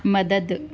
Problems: none marked